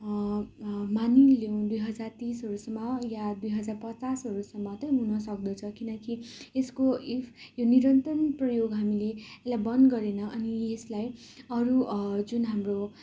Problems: none marked